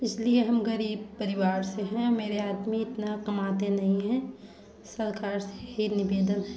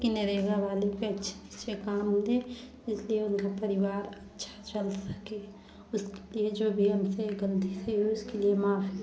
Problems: background sounds at intervals, background conversations at intervals